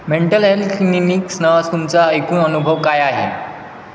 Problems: constant background noise, echo